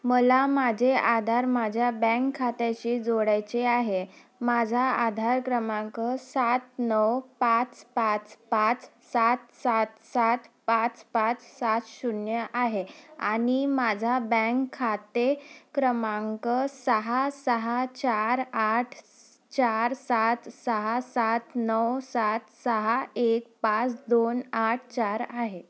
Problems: none marked